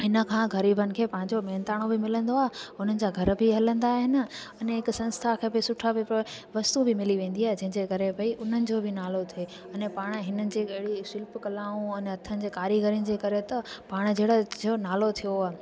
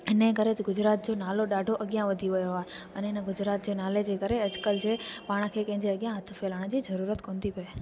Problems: constant background noise